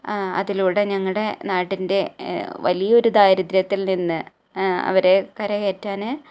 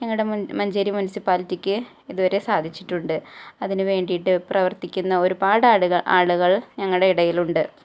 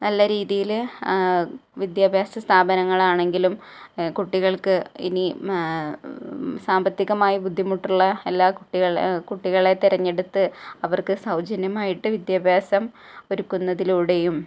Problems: low volume